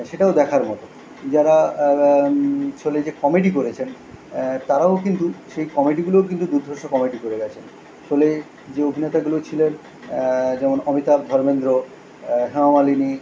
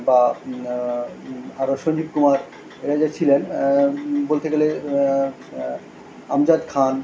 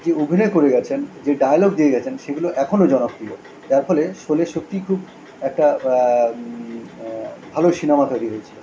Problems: none marked